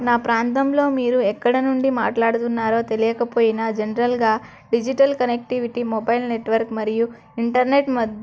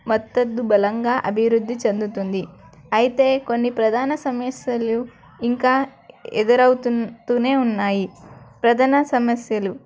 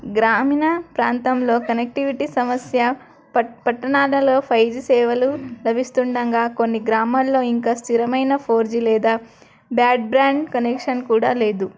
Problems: none marked